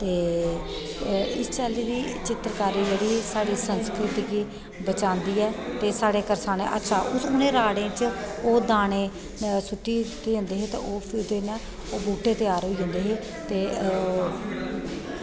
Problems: echo